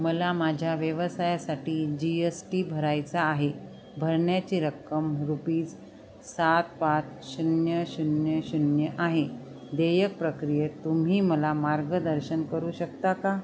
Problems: constant background noise, background conversations at intervals